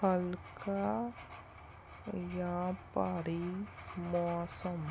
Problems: background sounds at intervals